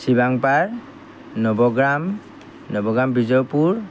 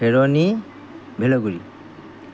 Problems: none marked